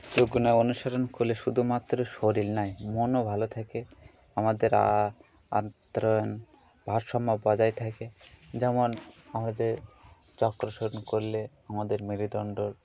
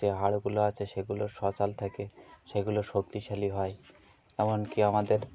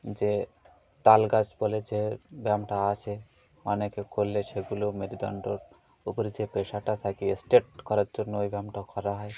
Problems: constant background noise, continuous background conversations